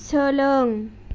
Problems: none marked